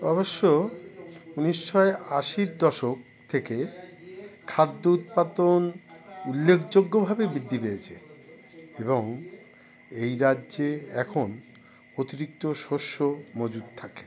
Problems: none marked